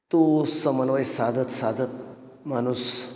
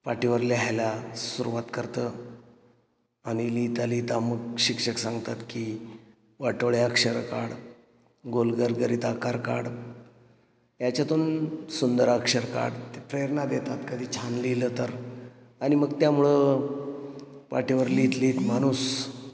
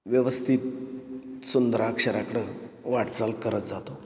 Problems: none marked